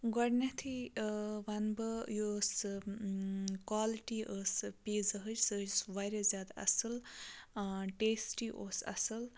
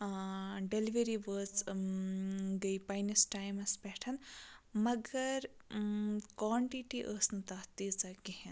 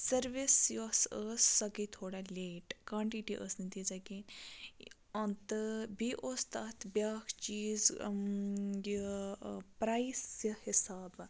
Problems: constant background noise